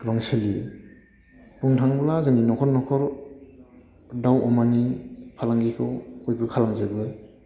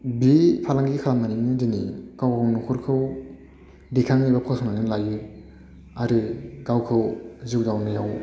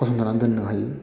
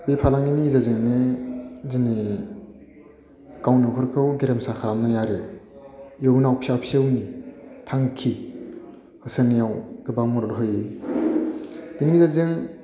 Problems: constant background noise